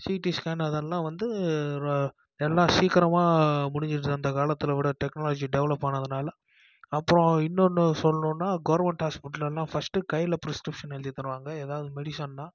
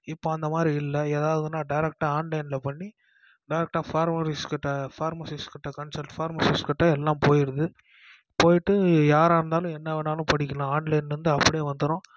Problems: none marked